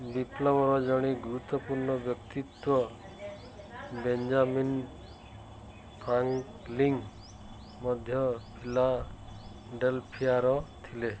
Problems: background sounds at intervals